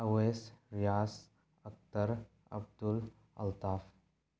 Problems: none marked